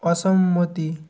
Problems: constant background noise